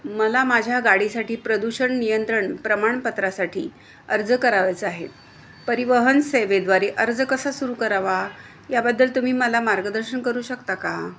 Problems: constant background noise, continuous background conversations